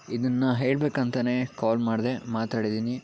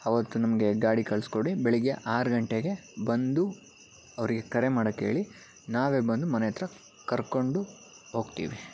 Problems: background sounds at intervals